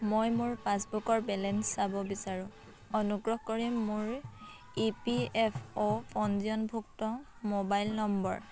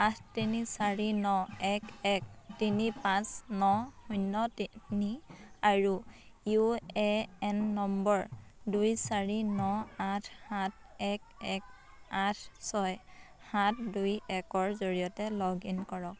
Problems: constant background noise, continuous background conversations